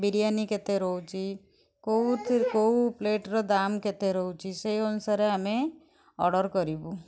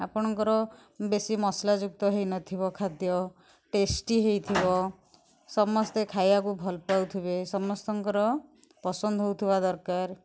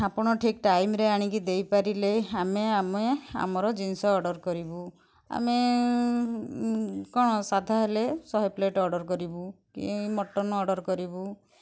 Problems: none marked